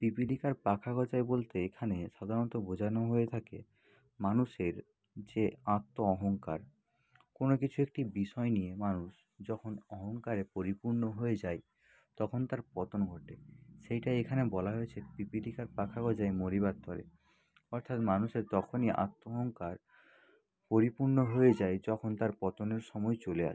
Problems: constant background noise, background conversations at intervals